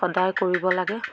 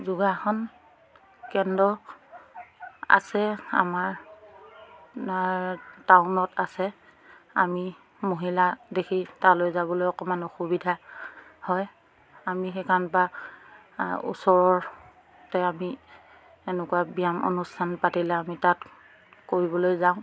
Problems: background sounds at intervals, background conversations at intervals